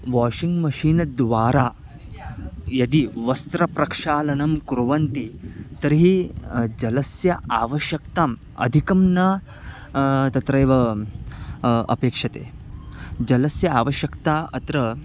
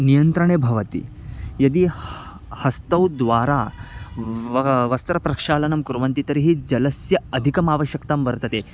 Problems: constant background noise, background conversations at intervals